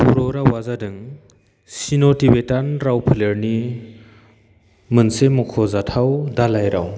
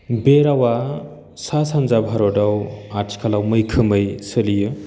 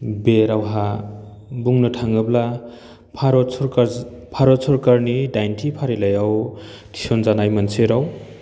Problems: none marked